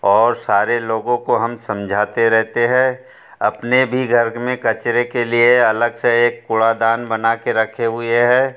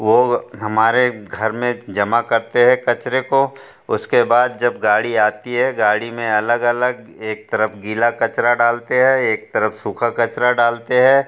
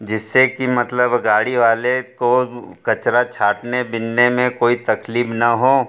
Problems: none marked